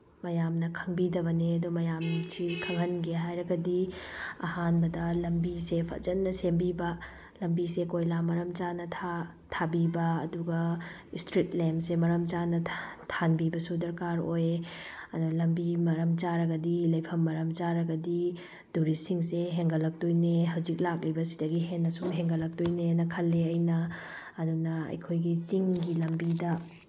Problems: none marked